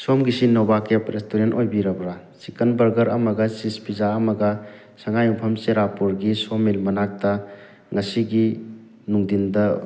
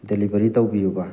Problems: background conversations at intervals